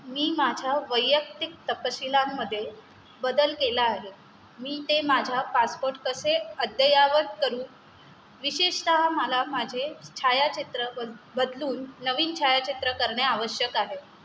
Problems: constant background noise